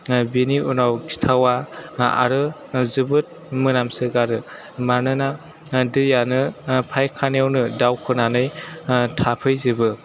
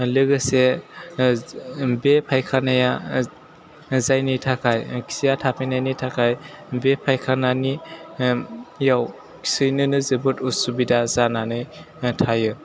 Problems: background conversations at intervals